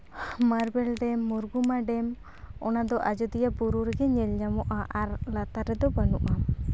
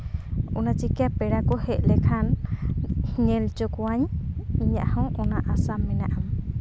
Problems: constant background noise, background conversations at intervals